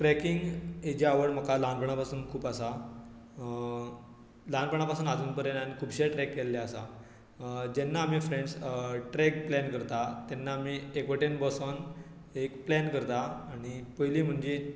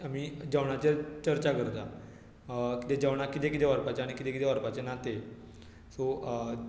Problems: none marked